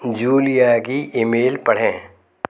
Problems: background sounds at intervals, echo